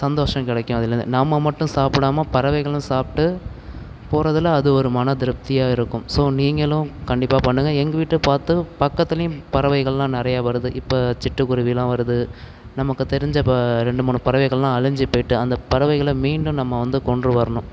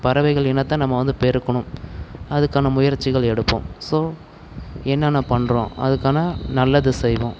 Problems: none marked